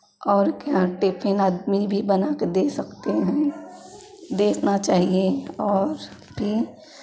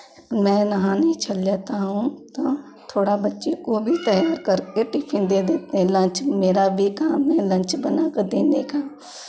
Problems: background sounds at intervals